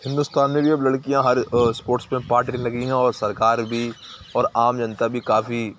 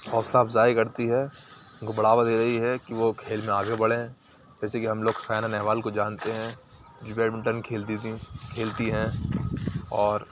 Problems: background sounds at intervals